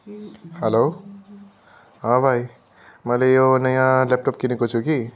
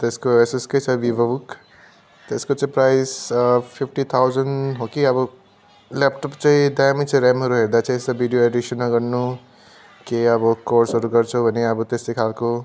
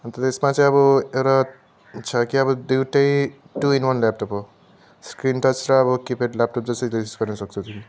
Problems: constant background noise, continuous background conversations